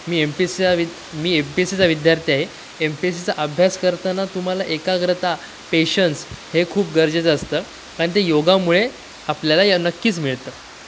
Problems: constant background noise